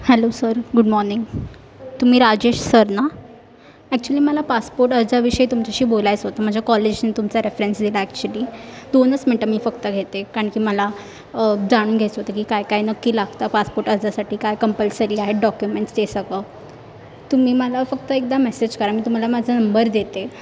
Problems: constant background noise, background conversations at intervals